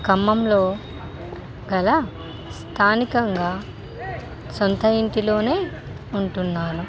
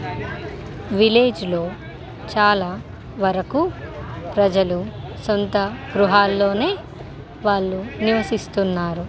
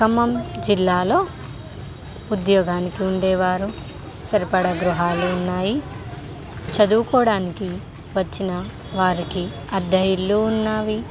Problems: constant background noise